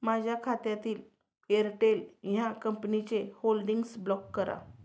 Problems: none marked